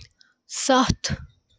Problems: constant background noise